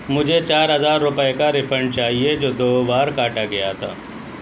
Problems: constant background noise